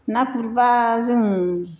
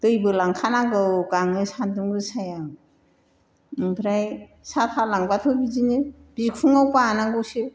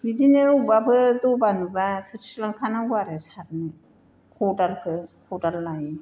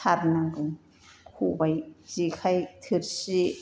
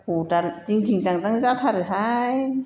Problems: background sounds at intervals